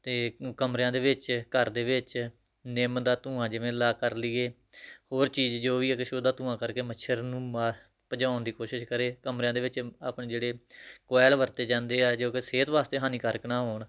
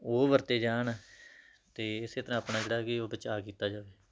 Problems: none marked